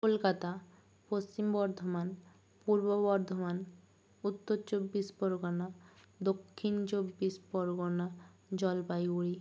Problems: low volume